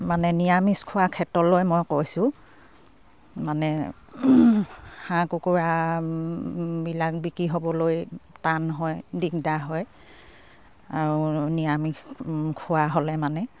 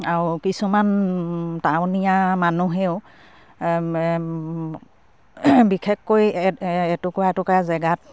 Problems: none marked